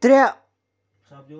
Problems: none marked